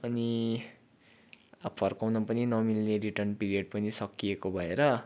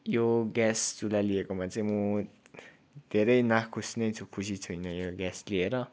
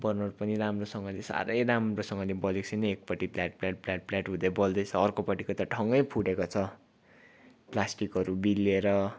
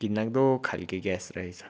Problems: none marked